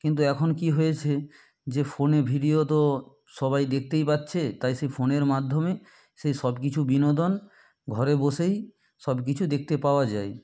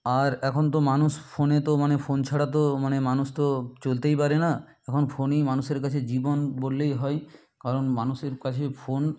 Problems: background sounds at intervals